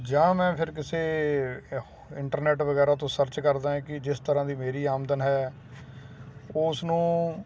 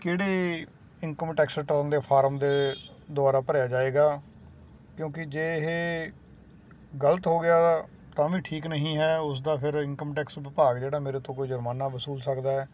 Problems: constant background noise